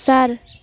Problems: constant background noise